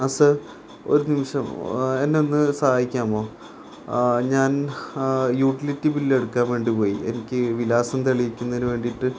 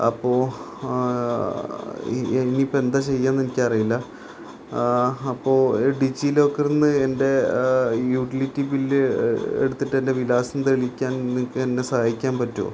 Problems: constant background noise